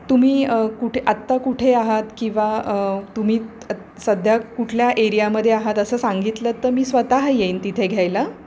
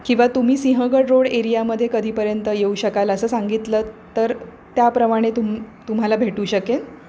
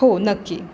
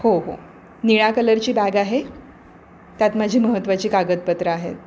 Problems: none marked